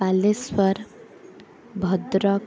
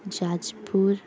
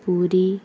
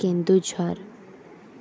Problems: constant background noise, continuous background conversations